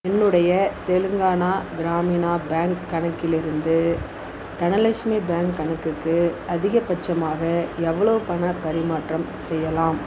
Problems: none marked